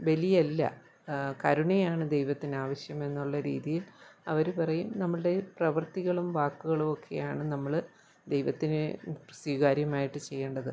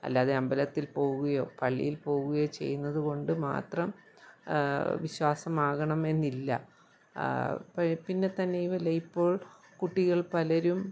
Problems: low volume